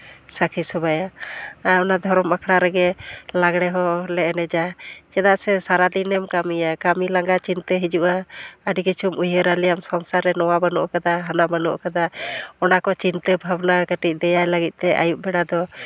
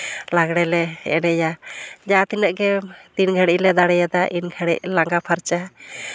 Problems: none marked